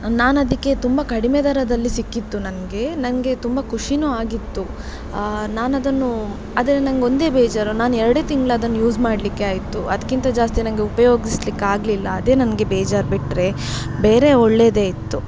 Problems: background sounds at intervals